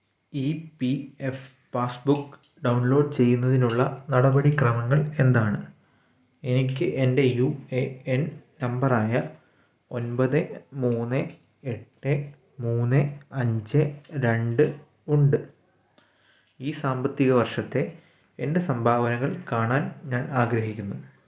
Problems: background sounds at intervals